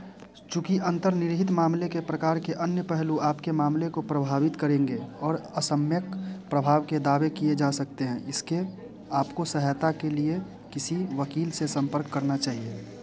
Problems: background sounds at intervals, continuous background conversations